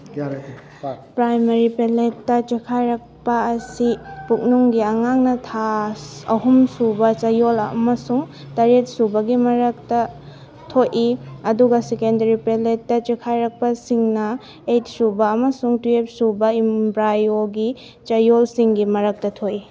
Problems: background conversations at intervals